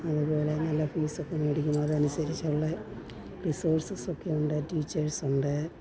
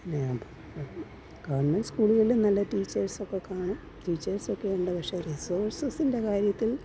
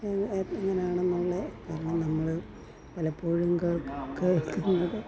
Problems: none marked